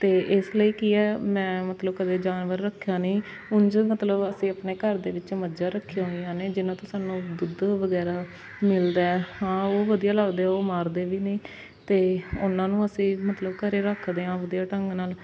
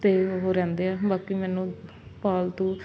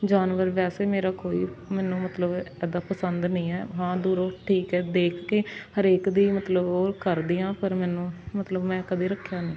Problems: constant background noise